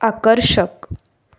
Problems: background sounds at intervals, continuous background conversations